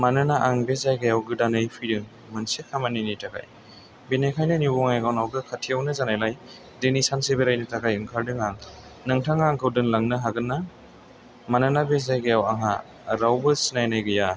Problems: background sounds at intervals